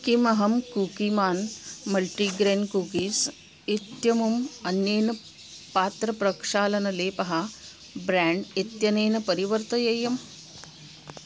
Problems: constant background noise